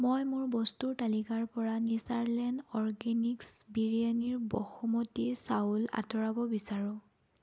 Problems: none marked